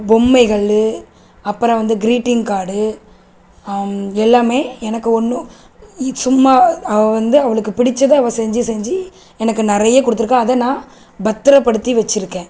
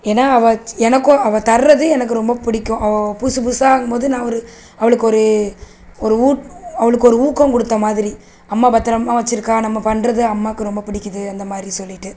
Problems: constant background noise